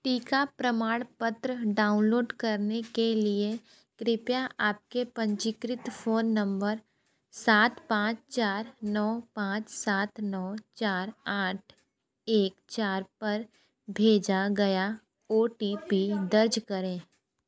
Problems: constant background noise, background conversations at intervals